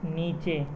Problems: background sounds at intervals